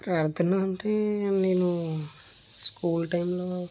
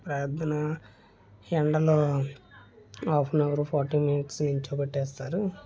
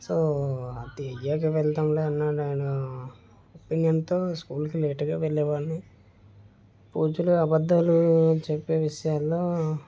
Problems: background sounds at intervals